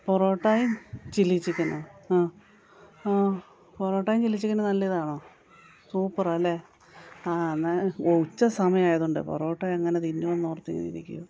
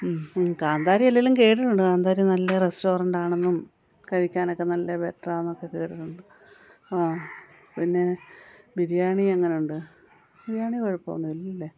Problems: none marked